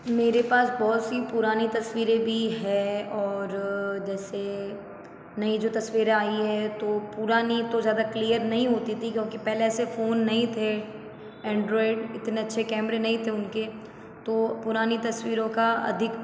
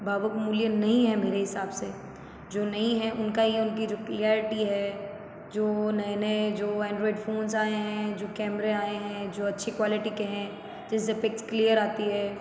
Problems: echo